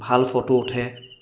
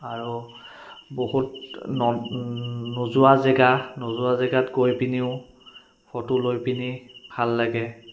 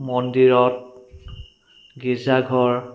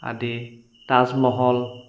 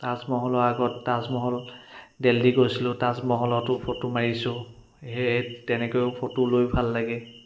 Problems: constant background noise